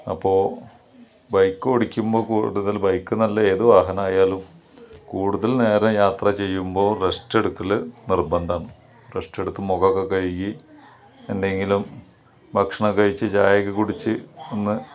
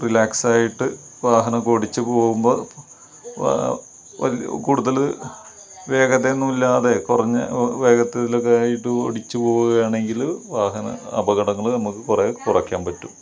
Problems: none marked